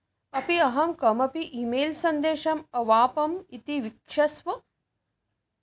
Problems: none marked